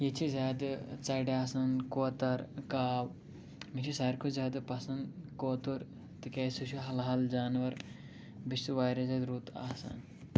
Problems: low volume